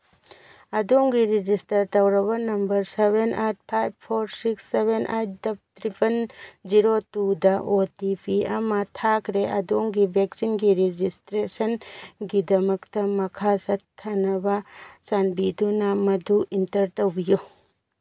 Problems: none marked